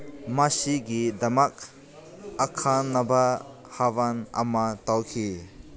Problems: constant background noise